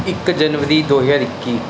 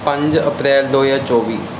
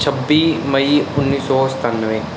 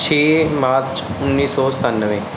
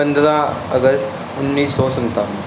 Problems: none marked